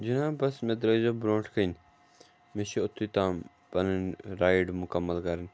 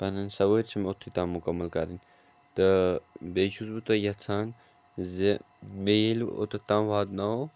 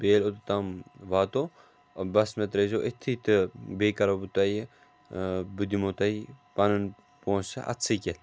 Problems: background sounds at intervals